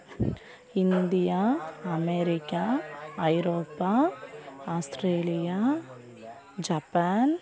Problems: continuous background conversations